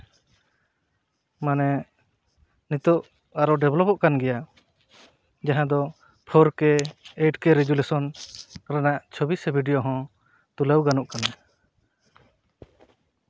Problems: none marked